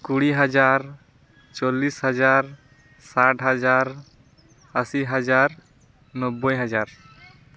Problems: background conversations at intervals